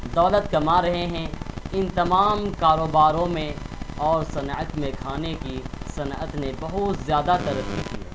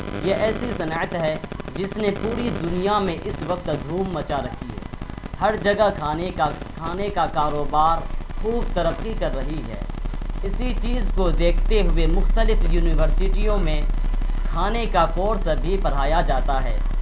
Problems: constant background noise